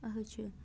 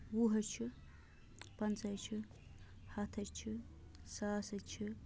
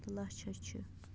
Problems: low volume